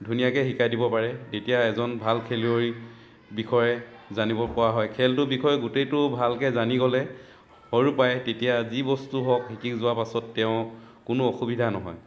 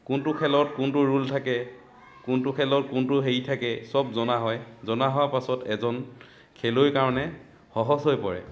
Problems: continuous background conversations